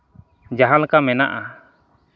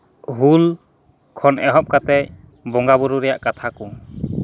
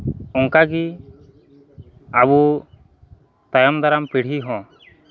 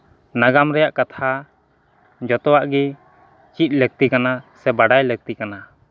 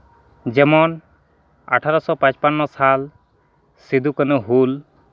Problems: constant background noise, background conversations at intervals